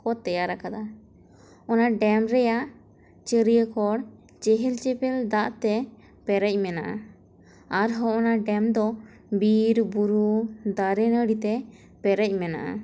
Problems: constant background noise